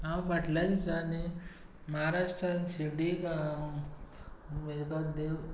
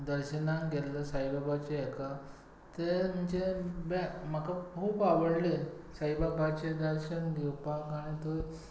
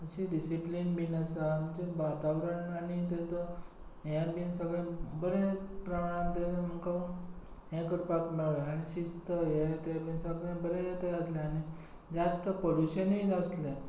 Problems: low volume